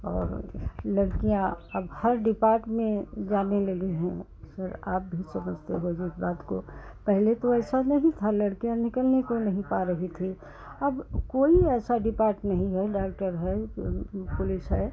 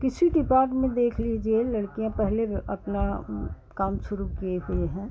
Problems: background sounds at intervals, continuous background conversations